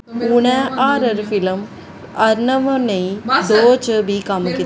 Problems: constant background noise, background conversations at intervals